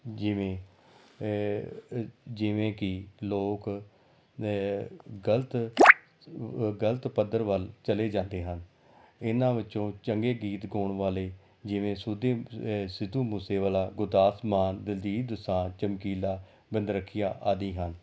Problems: background sounds at intervals